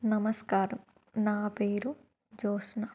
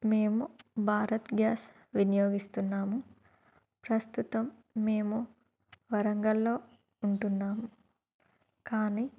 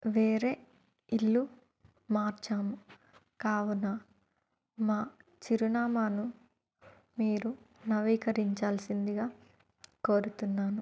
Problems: none marked